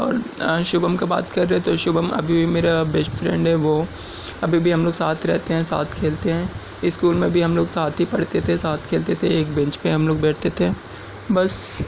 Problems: background sounds at intervals